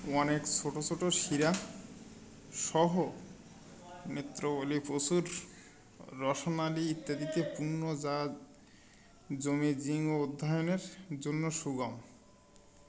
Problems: background conversations at intervals